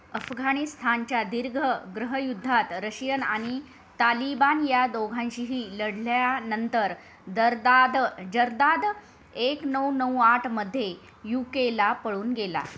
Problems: background sounds at intervals